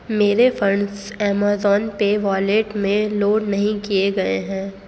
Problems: constant background noise